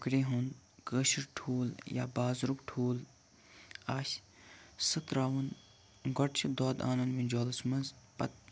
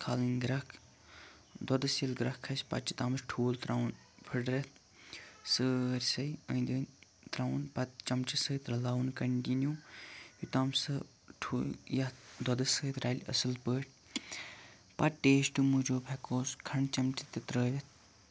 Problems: background sounds at intervals, low volume